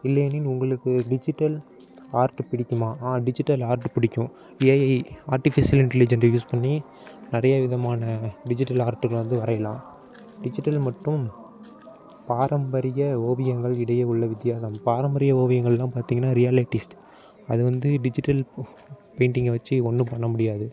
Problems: background sounds at intervals